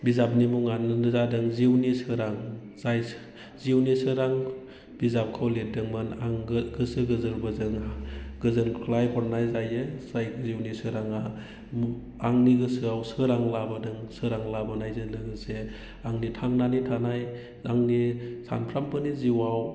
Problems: constant background noise